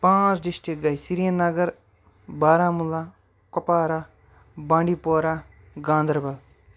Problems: none marked